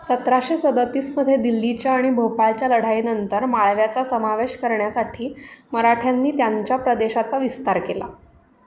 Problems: none marked